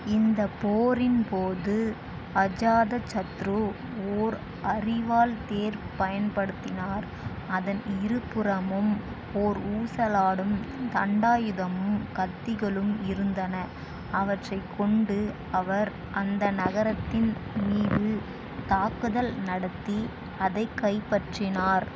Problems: constant background noise